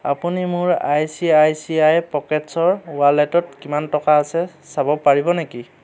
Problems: none marked